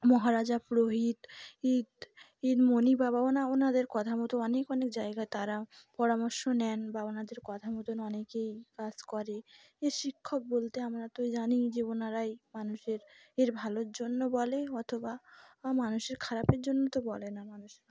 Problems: background sounds at intervals